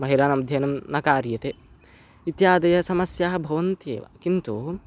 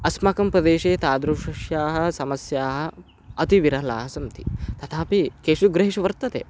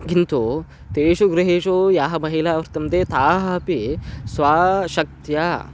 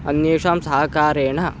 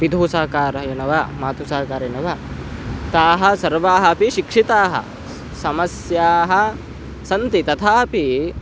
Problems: constant background noise